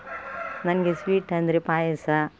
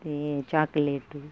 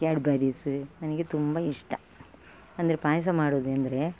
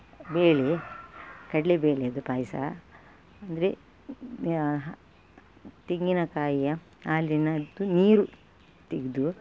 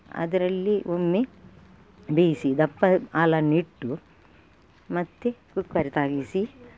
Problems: background sounds at intervals